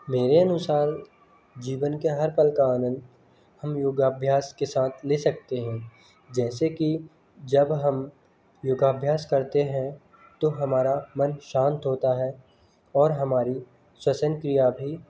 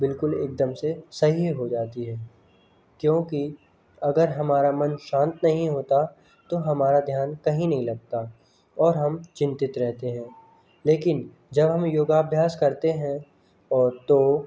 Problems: constant background noise, continuous background conversations